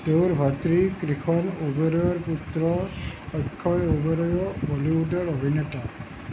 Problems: constant background noise